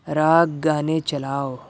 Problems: background sounds at intervals